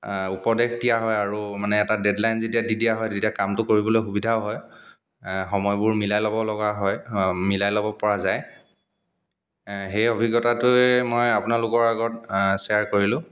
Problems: none marked